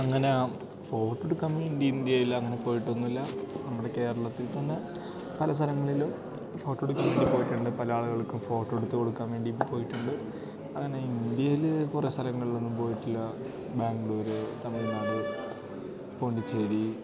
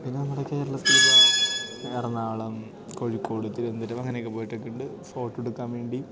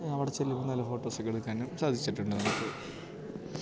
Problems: background sounds at intervals